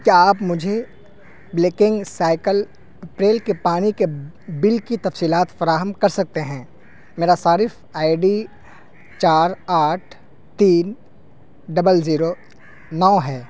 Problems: constant background noise